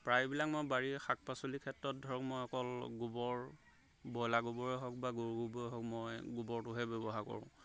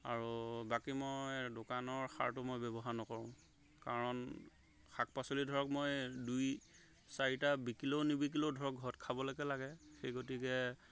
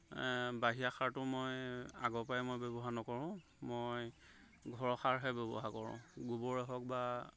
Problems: background sounds at intervals